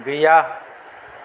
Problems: low volume